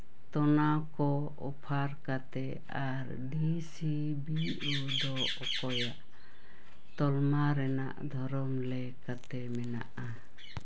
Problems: background sounds at intervals, background conversations at intervals